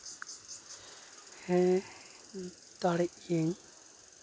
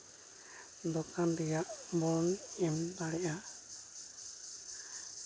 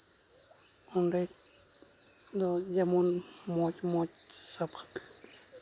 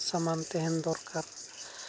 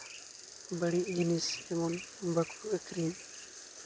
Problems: constant background noise